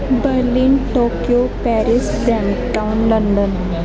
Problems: constant background noise